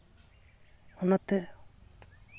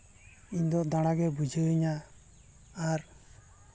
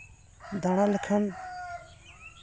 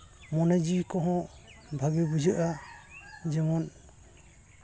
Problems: none marked